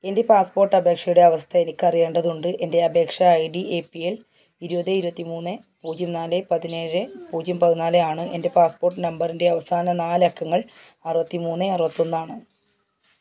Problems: background sounds at intervals